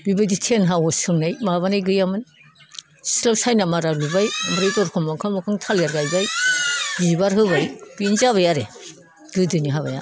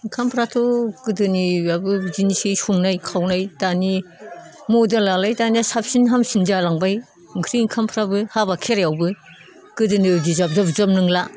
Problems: none marked